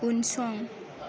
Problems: background sounds at intervals